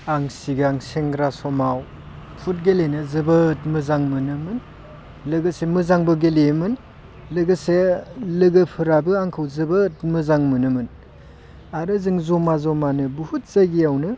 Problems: constant background noise